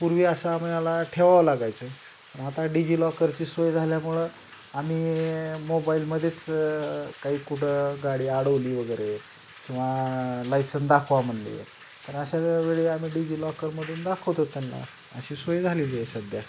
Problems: constant background noise